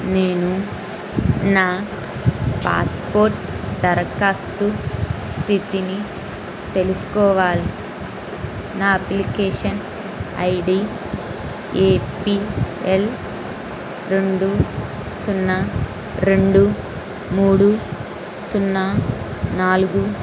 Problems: constant background noise